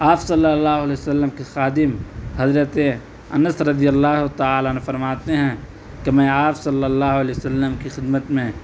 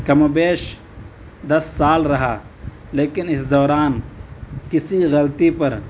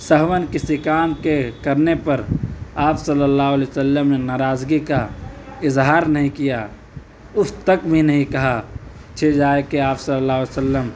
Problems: background sounds at intervals